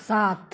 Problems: none marked